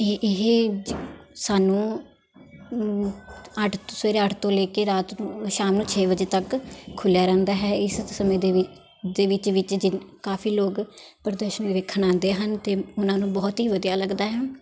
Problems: constant background noise, background conversations at intervals